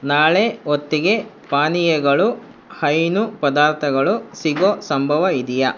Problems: constant background noise